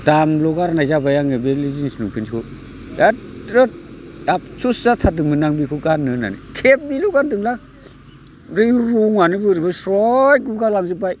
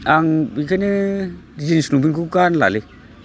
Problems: none marked